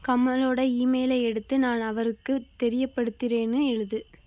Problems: constant background noise